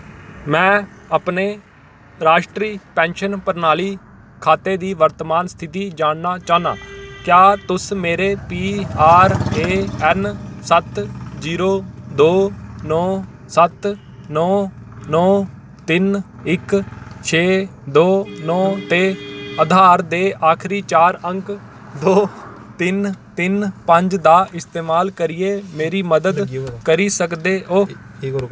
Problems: none marked